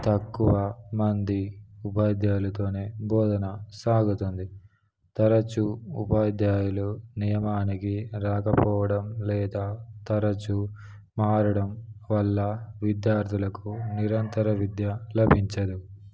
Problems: none marked